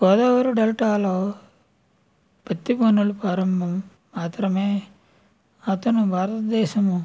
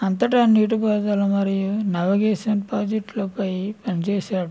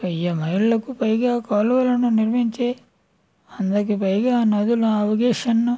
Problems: none marked